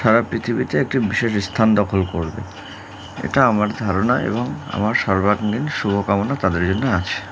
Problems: none marked